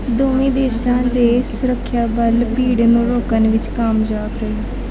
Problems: none marked